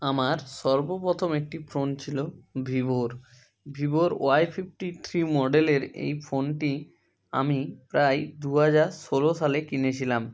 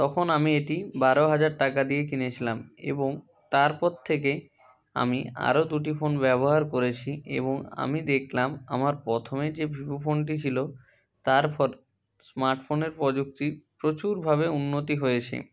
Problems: constant background noise, continuous background conversations